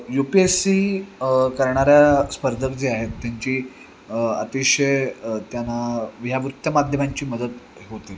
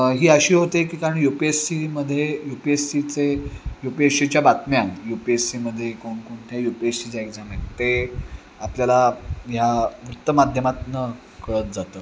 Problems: background sounds at intervals